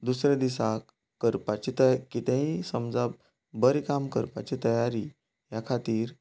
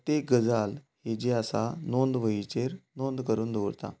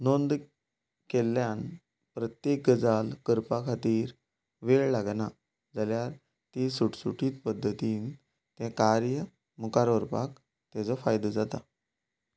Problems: none marked